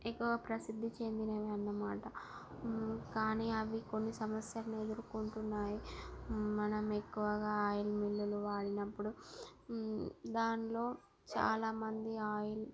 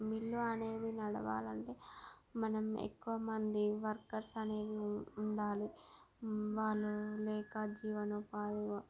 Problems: none marked